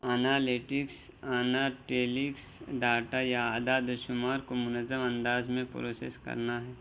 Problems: constant background noise, low volume